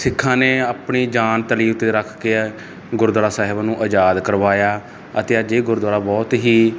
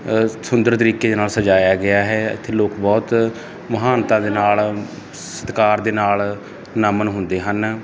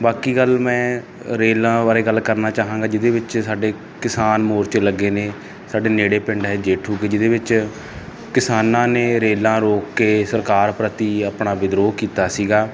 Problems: none marked